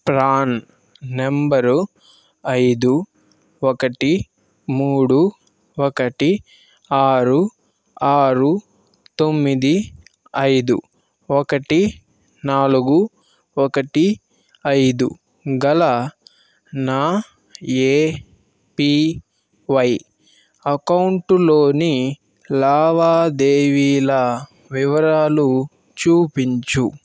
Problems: constant background noise